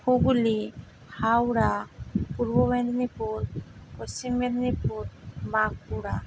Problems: none marked